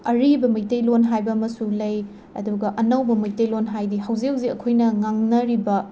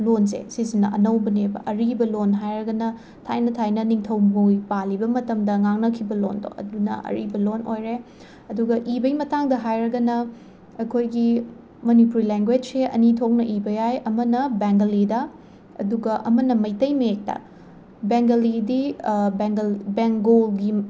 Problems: constant background noise